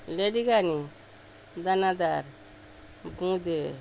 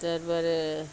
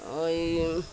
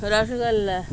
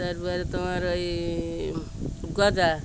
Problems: none marked